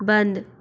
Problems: none marked